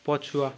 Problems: none marked